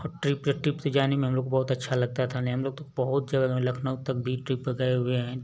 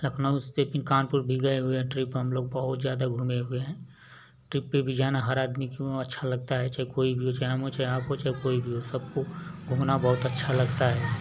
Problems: none marked